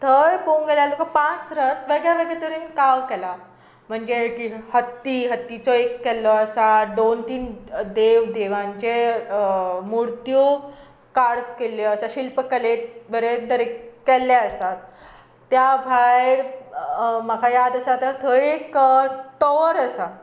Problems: constant background noise